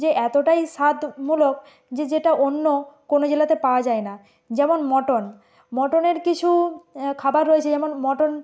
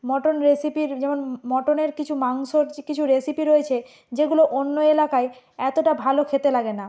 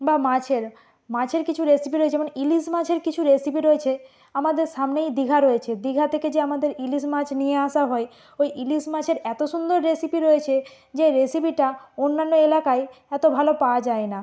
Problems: none marked